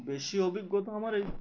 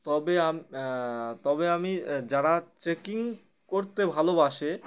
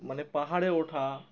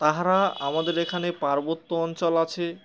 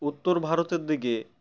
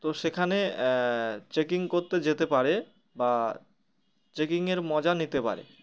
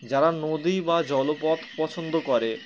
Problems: constant background noise, continuous background conversations